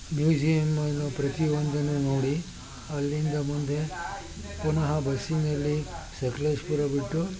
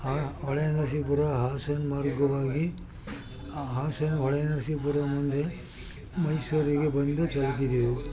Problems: continuous background conversations